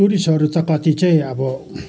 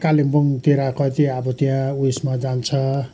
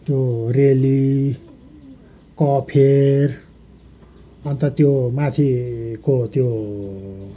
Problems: constant background noise